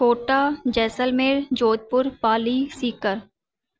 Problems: constant background noise